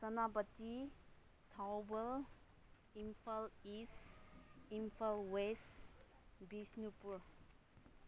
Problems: background sounds at intervals